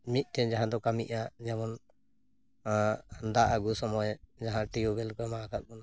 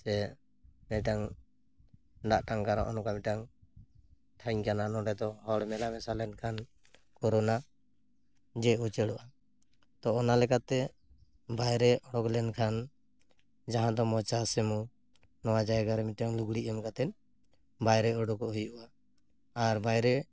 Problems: background sounds at intervals